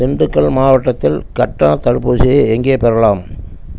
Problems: constant background noise